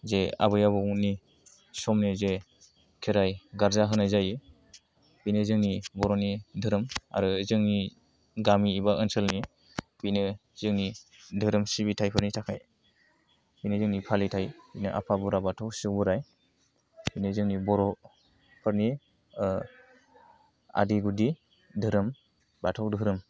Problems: none marked